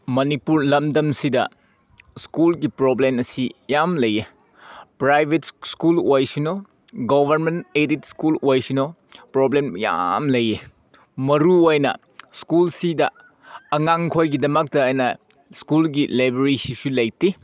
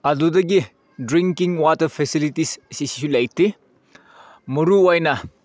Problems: none marked